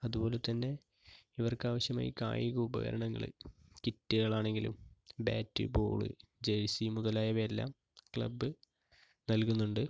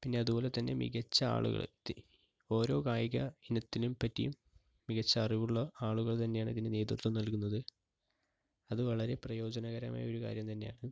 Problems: low volume